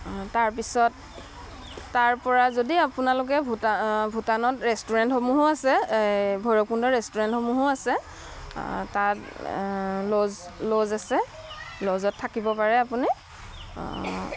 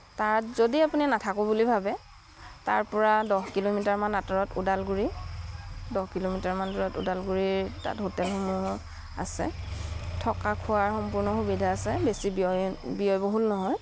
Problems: none marked